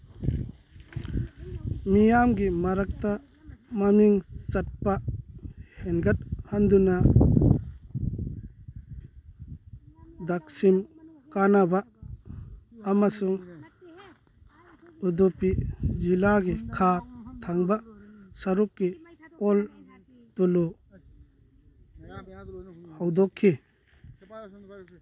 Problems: background conversations at intervals